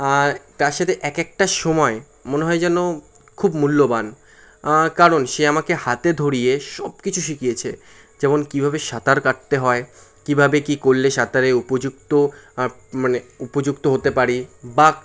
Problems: constant background noise